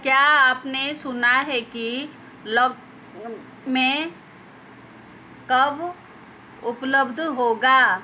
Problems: background sounds at intervals